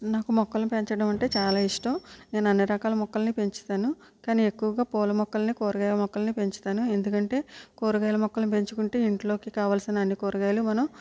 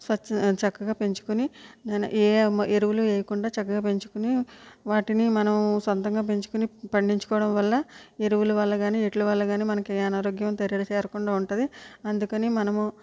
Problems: low volume